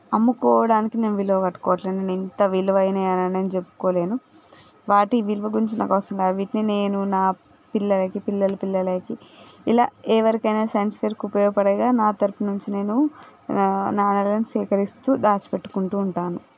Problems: background sounds at intervals